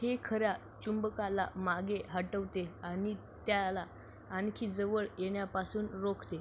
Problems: none marked